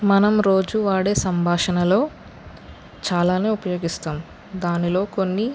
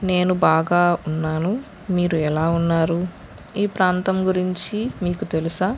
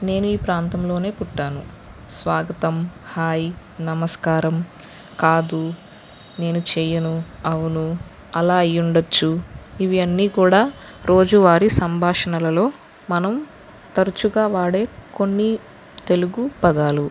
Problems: none marked